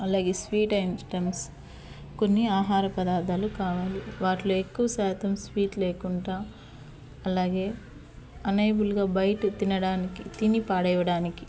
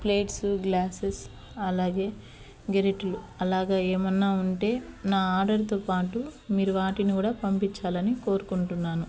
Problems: constant background noise